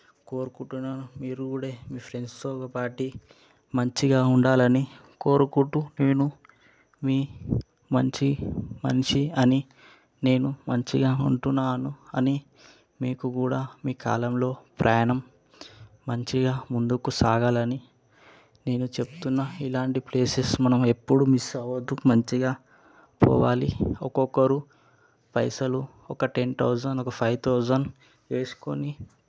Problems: background sounds at intervals